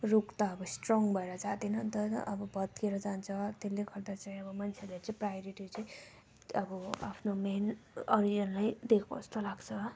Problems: low volume